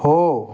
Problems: background sounds at intervals